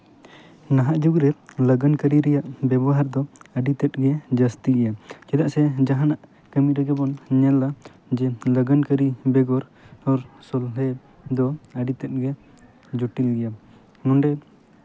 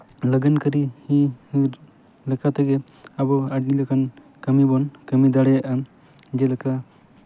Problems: constant background noise, background conversations at intervals